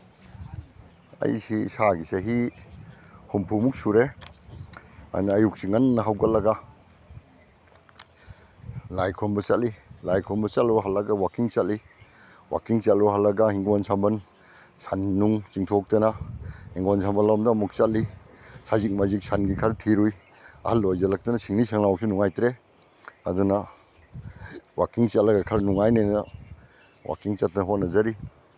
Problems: none marked